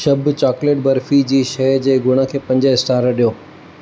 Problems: constant background noise